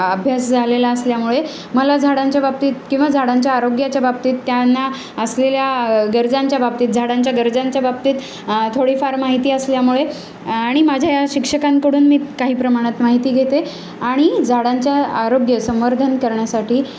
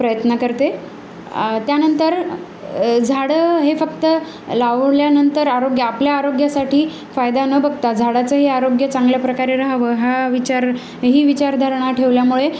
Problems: none marked